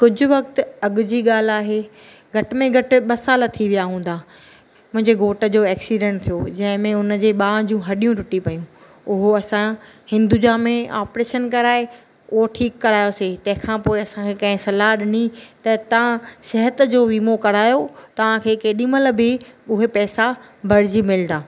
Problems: none marked